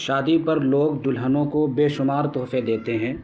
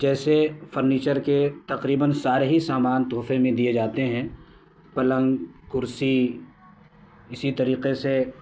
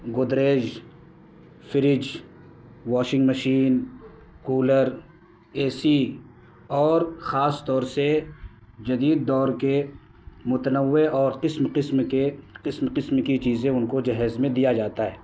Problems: constant background noise